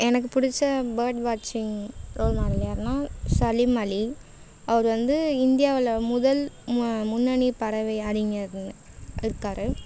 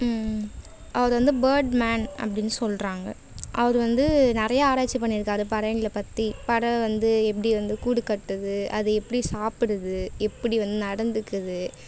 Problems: background sounds at intervals